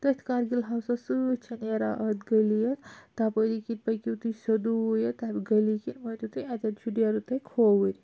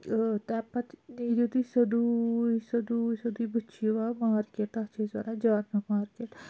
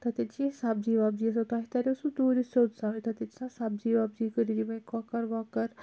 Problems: constant background noise